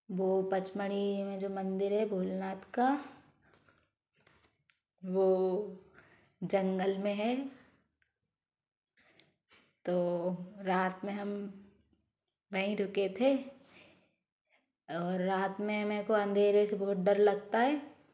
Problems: background sounds at intervals